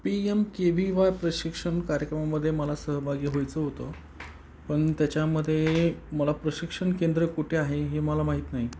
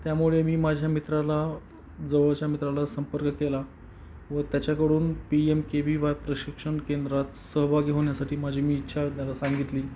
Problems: none marked